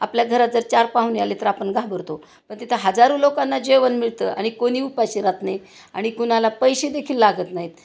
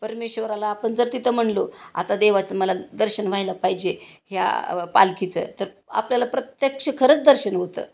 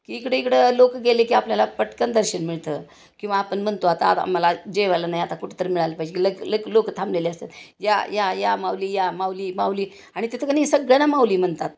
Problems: constant background noise